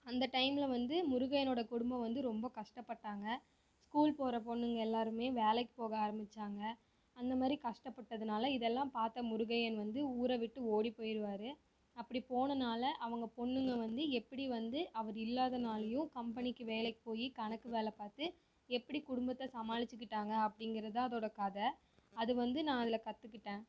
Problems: low volume